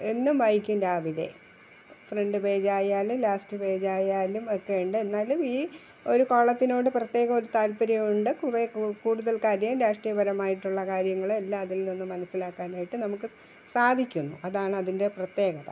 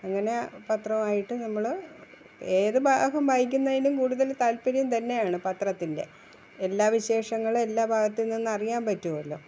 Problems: constant background noise